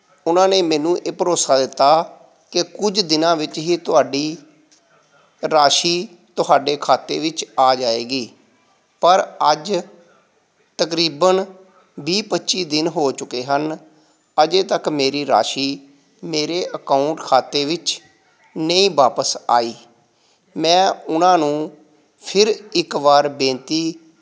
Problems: background sounds at intervals